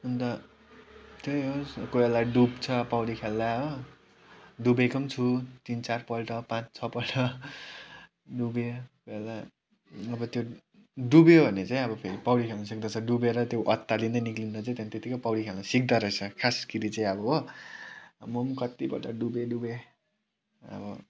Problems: background sounds at intervals